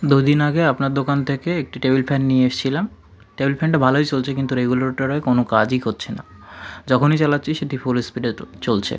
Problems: constant background noise, continuous background conversations